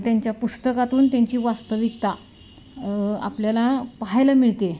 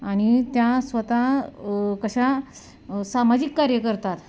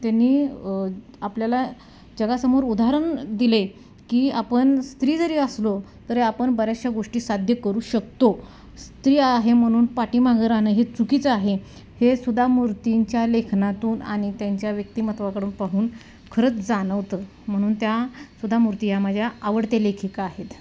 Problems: none marked